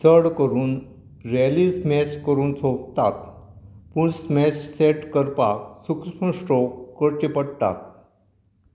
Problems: background sounds at intervals